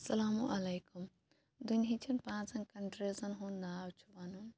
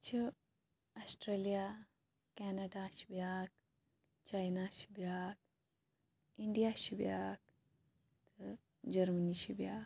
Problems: background sounds at intervals